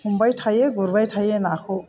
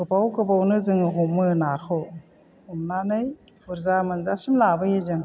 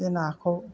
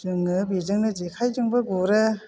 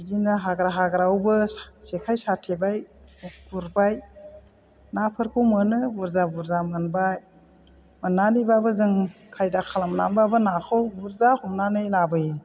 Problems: low volume